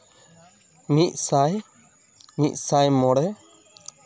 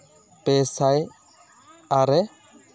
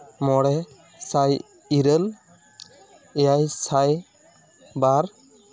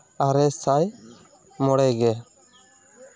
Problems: constant background noise, background conversations at intervals